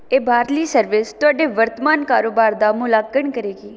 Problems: background sounds at intervals